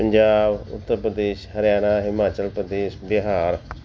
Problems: background sounds at intervals